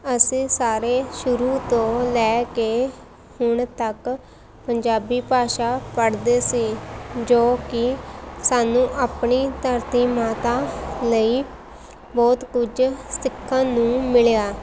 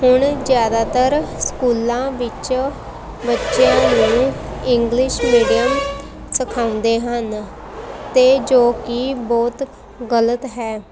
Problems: constant background noise, background conversations at intervals